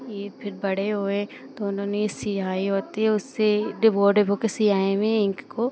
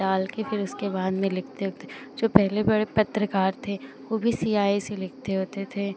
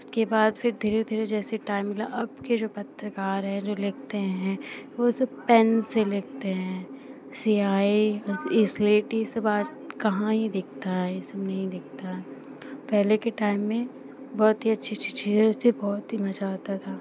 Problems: none marked